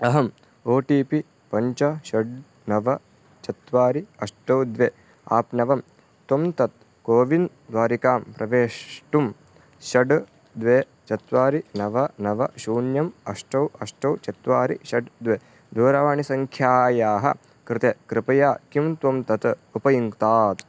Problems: constant background noise